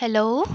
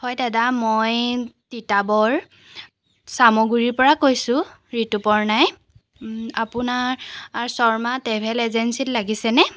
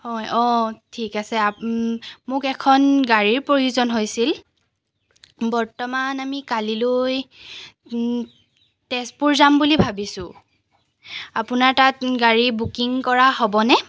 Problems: none marked